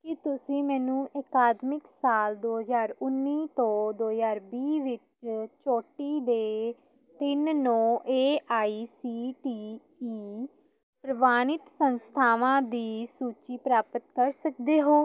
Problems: none marked